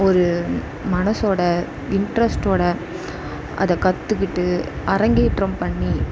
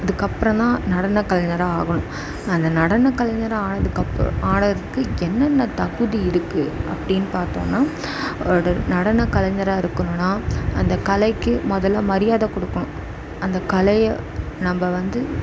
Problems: background sounds at intervals